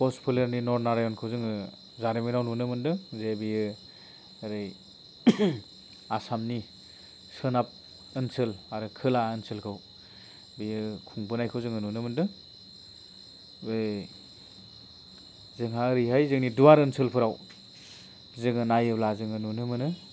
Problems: none marked